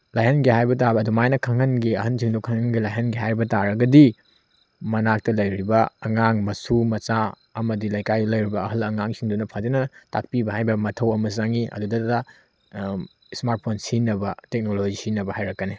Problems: none marked